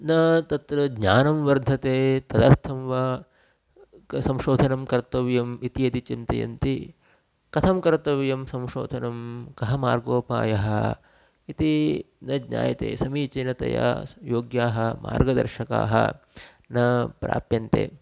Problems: constant background noise